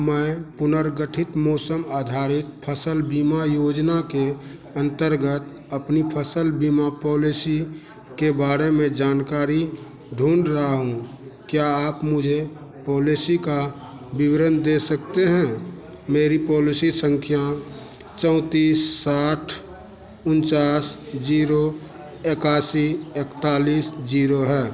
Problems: none marked